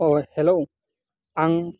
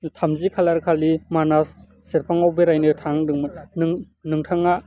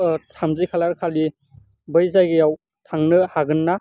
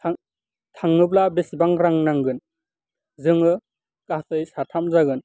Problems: constant background noise